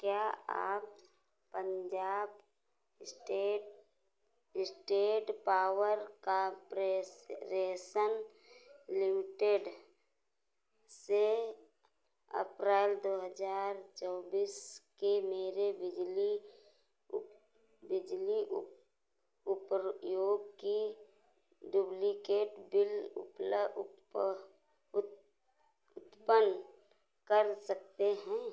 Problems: none marked